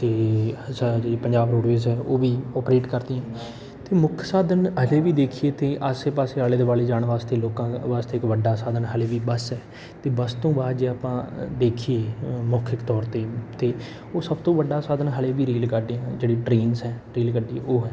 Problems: background sounds at intervals, background conversations at intervals